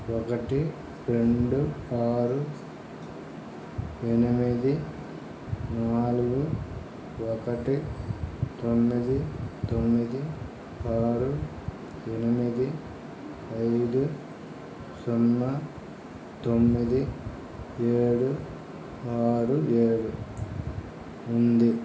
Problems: background sounds at intervals